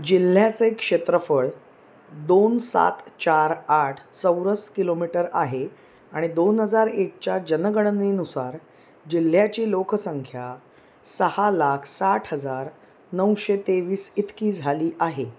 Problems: background sounds at intervals